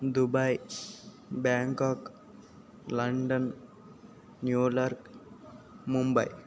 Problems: none marked